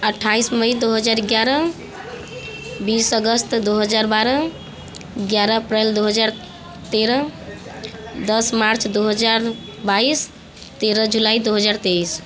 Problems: none marked